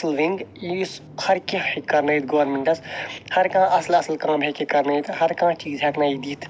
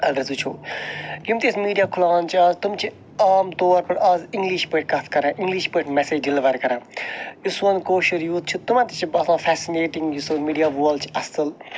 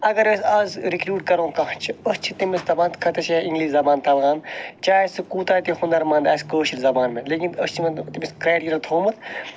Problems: background sounds at intervals